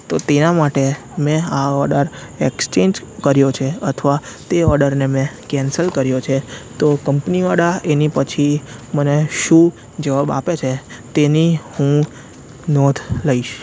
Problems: constant background noise